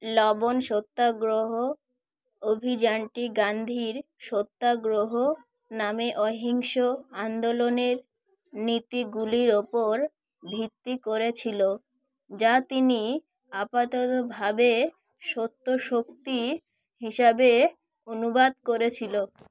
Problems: none marked